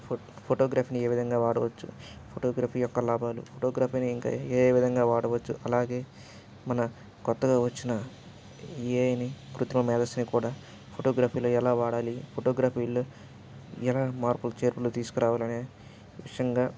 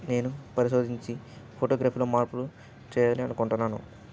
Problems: background sounds at intervals